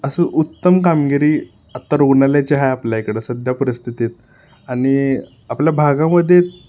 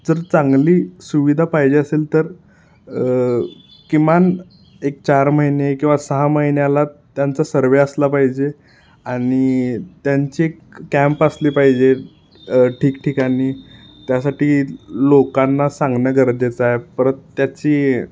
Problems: background sounds at intervals